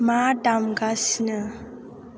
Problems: constant background noise